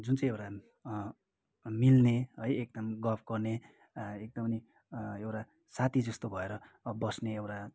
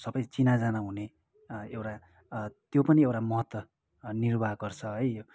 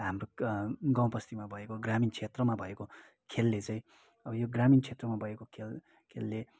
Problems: background sounds at intervals